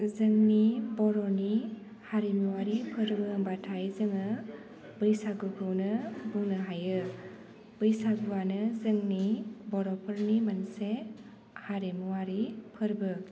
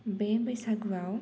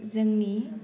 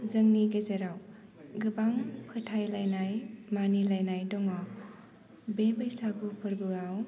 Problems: low volume